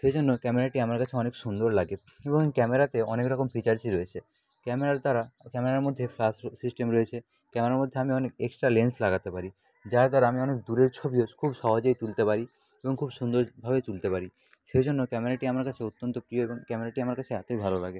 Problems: background sounds at intervals